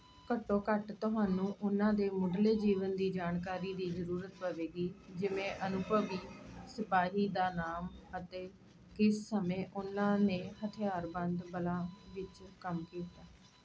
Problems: constant background noise